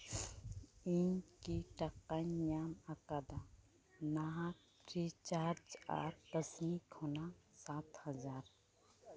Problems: background conversations at intervals